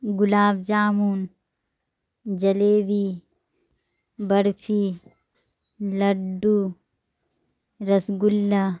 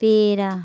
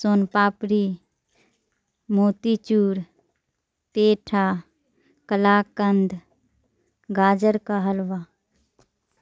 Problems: low volume